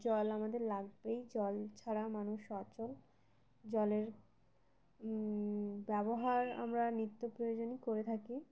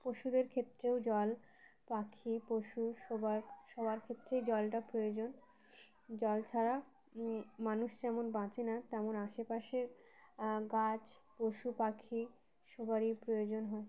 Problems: background sounds at intervals